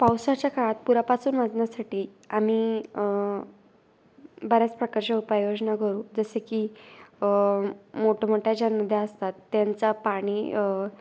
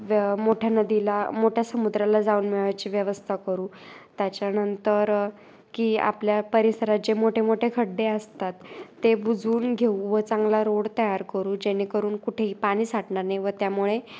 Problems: none marked